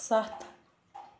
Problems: background sounds at intervals